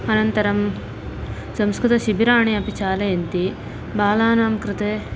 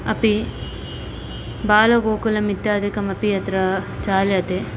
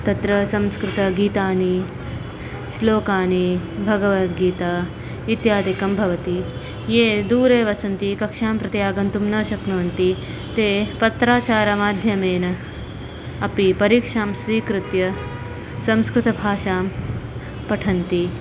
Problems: none marked